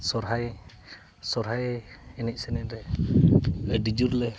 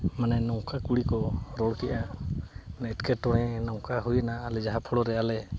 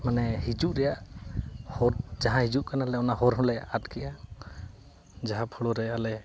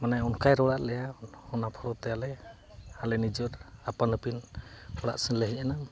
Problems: background sounds at intervals, background conversations at intervals